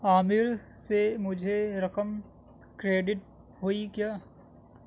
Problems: background sounds at intervals